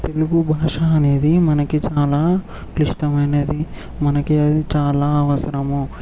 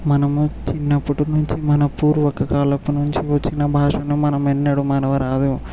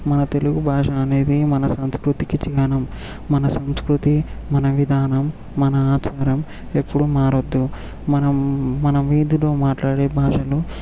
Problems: background sounds at intervals